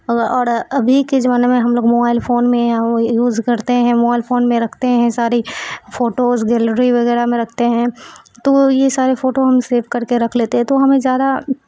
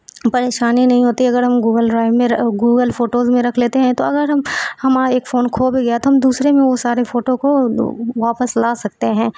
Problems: constant background noise